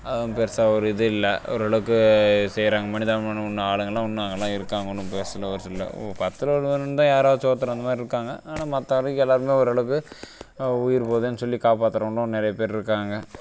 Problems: constant background noise